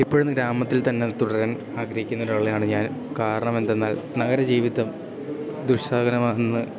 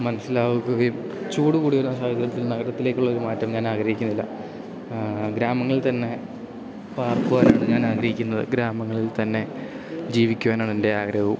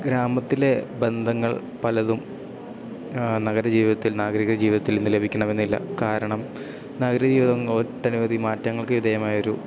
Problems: background sounds at intervals